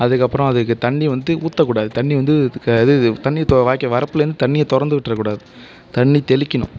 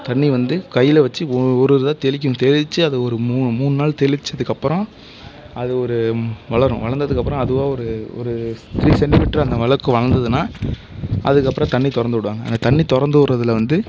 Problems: background sounds at intervals